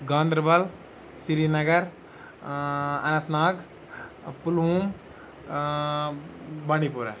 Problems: background sounds at intervals